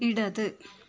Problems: none marked